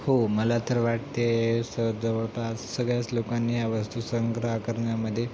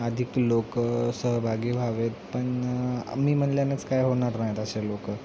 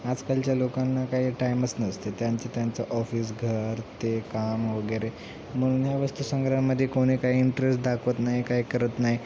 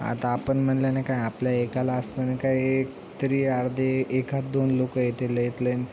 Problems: constant background noise, background conversations at intervals